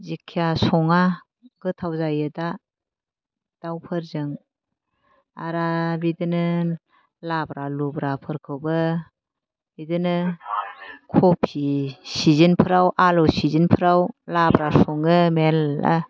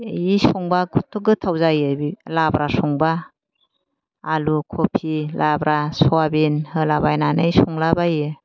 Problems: none marked